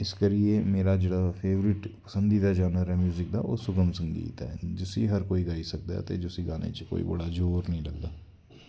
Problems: constant background noise